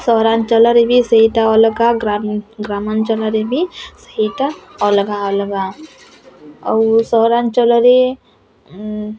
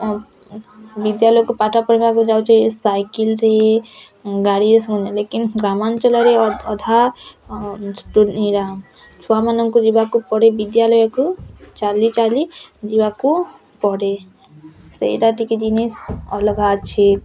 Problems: constant background noise, continuous background conversations